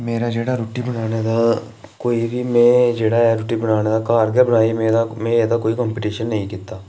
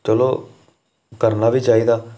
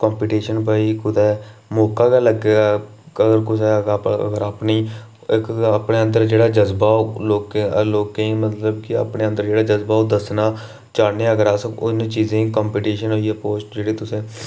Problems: none marked